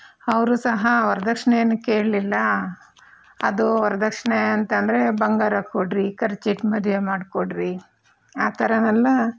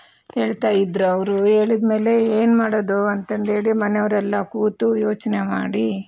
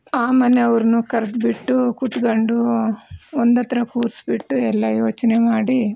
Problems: none marked